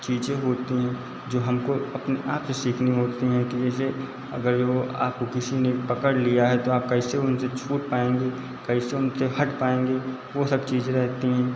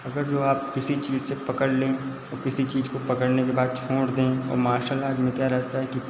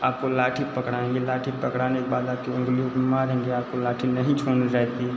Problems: constant background noise, echo